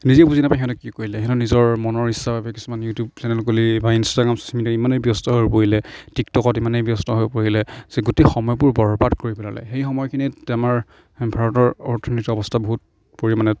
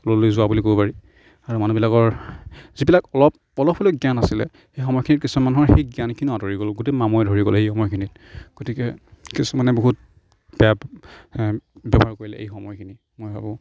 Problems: background sounds at intervals, background conversations at intervals